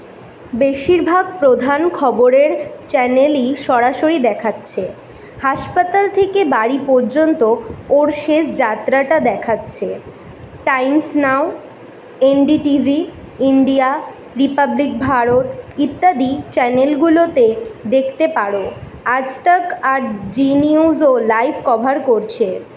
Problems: background sounds at intervals